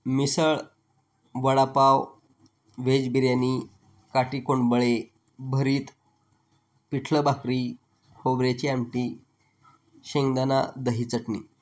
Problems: background sounds at intervals